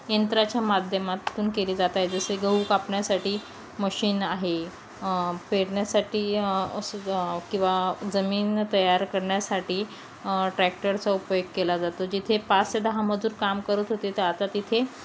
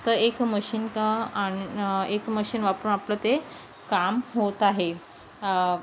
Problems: constant background noise